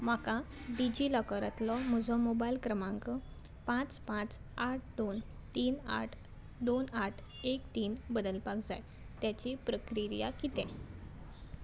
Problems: background sounds at intervals